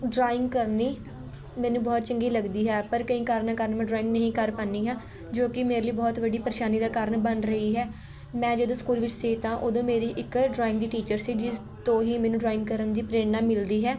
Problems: constant background noise